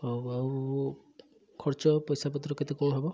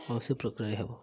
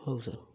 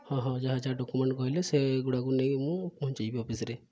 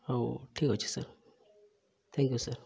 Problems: none marked